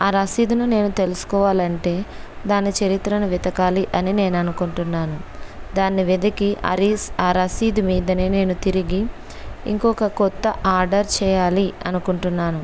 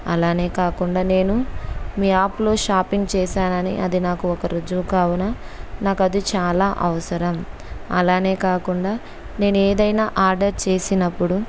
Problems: constant background noise